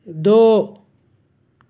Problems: constant background noise